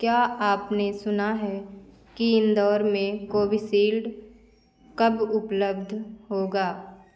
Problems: none marked